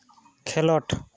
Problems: constant background noise